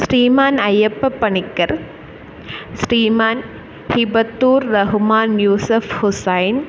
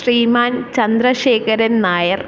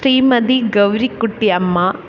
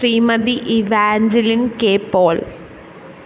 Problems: none marked